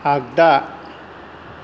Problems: low volume